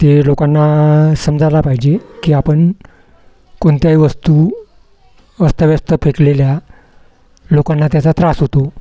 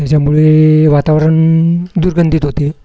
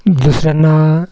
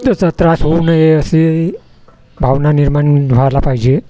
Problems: none marked